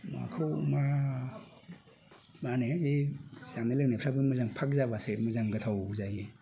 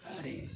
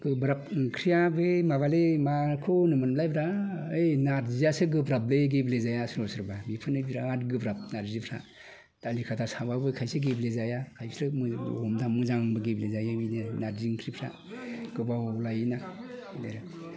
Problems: constant background noise